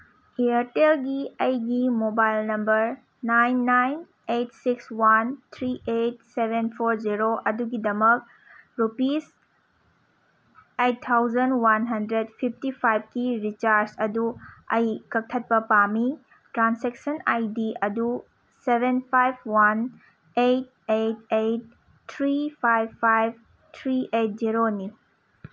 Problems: none marked